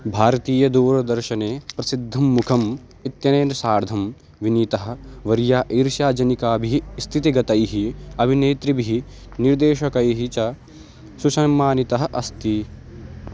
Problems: constant background noise